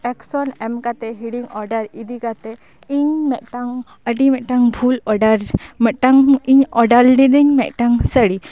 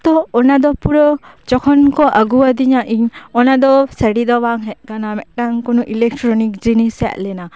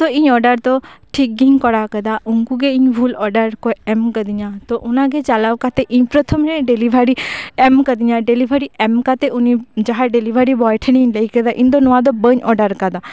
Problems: background sounds at intervals